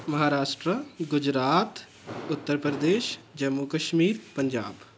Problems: constant background noise